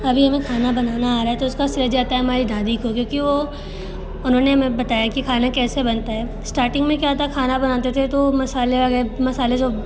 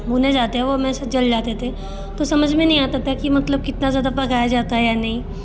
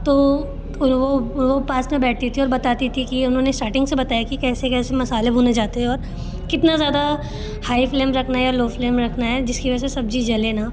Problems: constant background noise